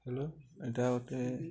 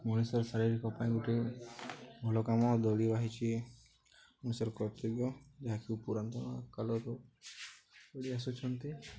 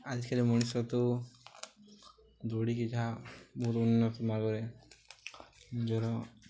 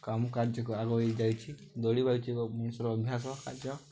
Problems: none marked